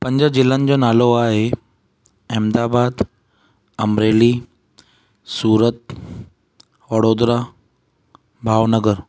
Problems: none marked